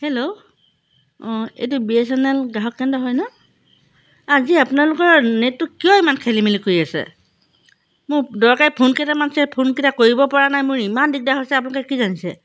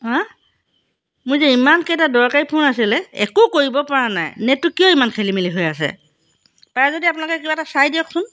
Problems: background sounds at intervals